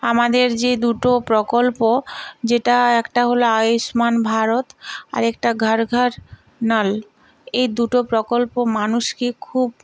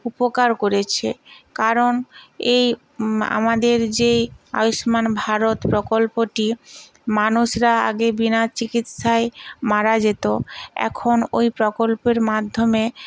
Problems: none marked